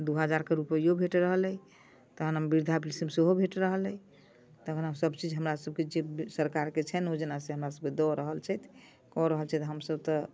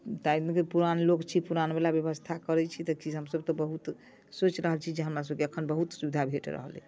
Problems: none marked